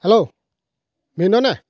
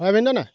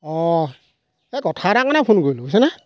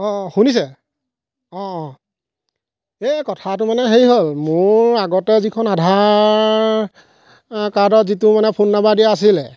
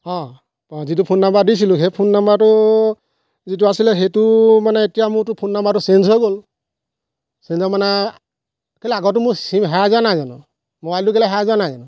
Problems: constant background noise